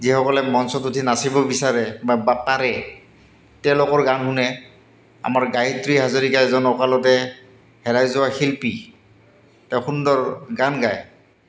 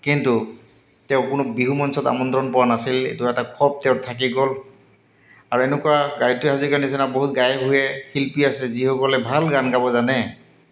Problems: none marked